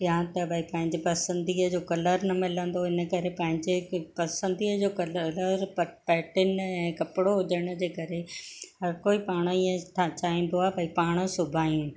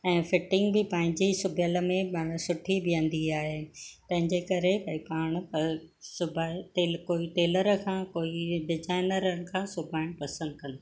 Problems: none marked